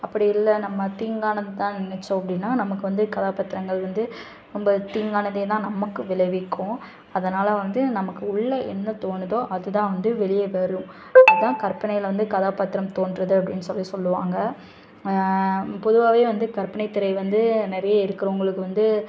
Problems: constant background noise, background conversations at intervals